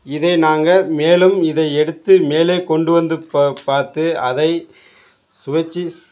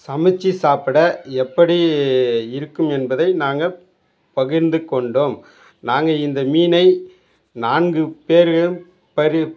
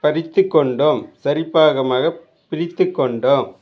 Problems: background conversations at intervals